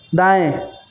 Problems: background sounds at intervals